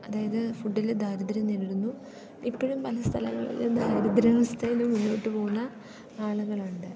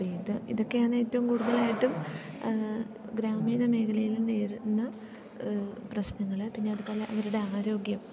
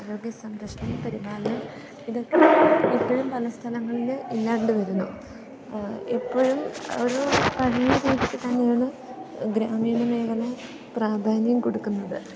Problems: background sounds at intervals